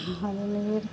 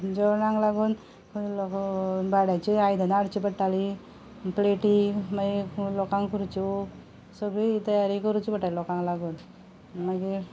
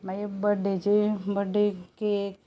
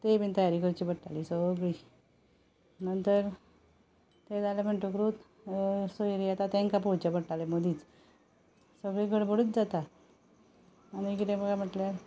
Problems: background sounds at intervals